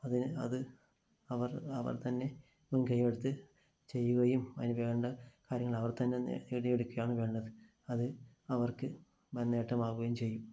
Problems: low volume